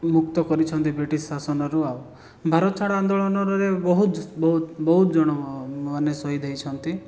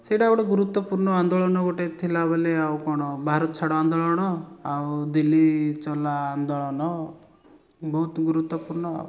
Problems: background sounds at intervals